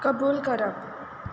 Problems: constant background noise